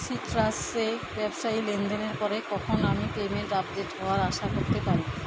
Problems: constant background noise